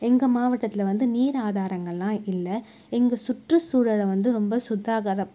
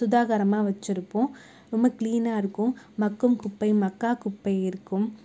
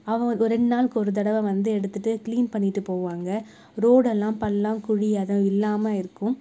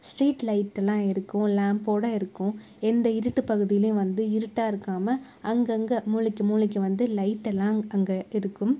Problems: none marked